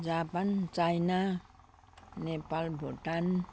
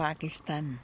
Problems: none marked